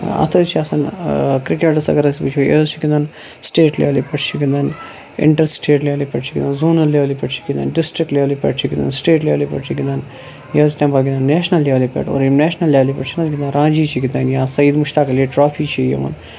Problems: constant background noise